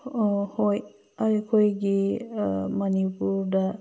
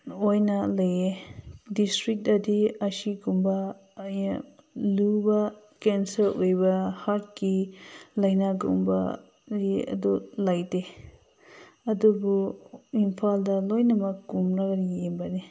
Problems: background sounds at intervals